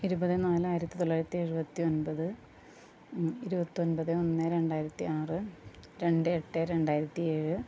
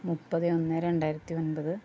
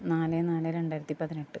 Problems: low volume